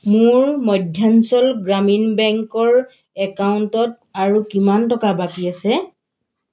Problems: none marked